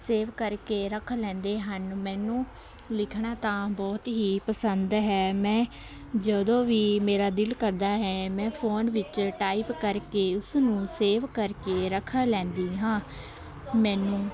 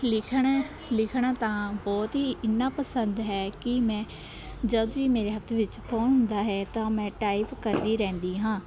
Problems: none marked